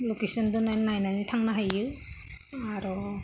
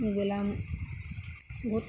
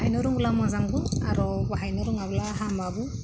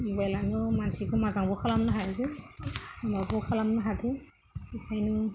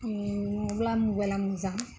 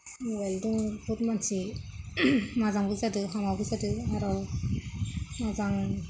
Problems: low volume